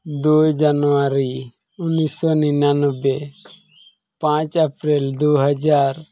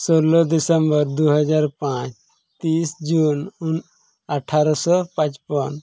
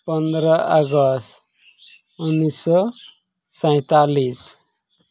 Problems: none marked